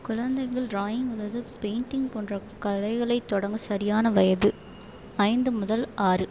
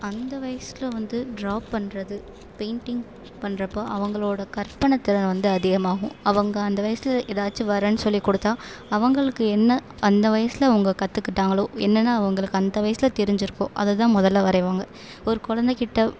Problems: constant background noise